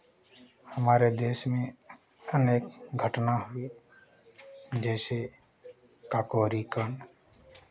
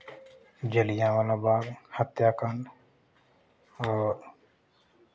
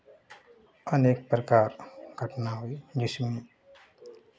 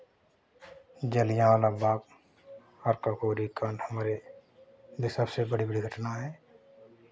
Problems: constant background noise, background conversations at intervals